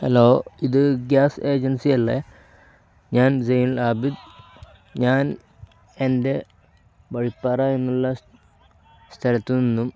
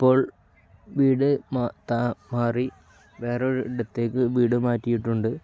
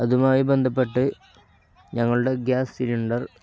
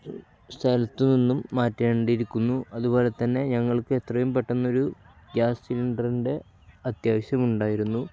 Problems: none marked